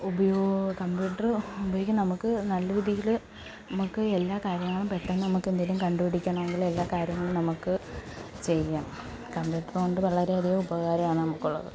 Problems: background sounds at intervals